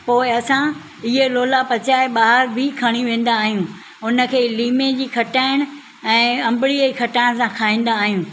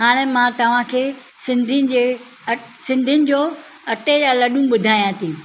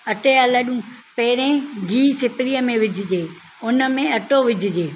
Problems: none marked